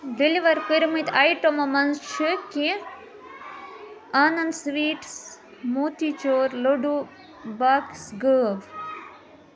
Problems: constant background noise